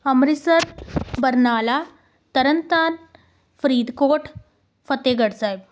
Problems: background sounds at intervals